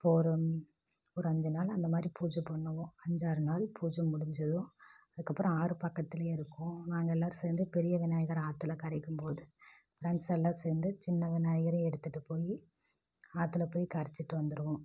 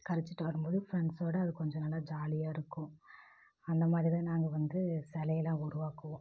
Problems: none marked